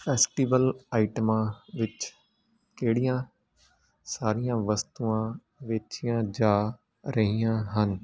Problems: constant background noise